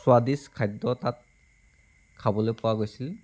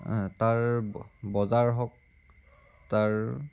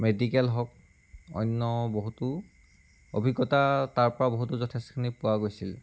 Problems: background sounds at intervals